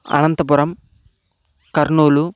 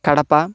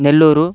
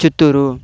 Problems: constant background noise